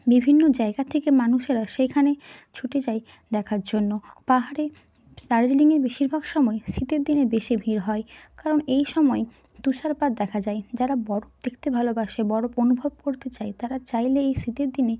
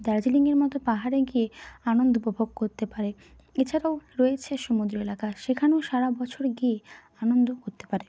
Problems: constant background noise